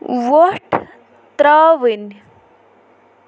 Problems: background sounds at intervals